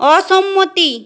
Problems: none marked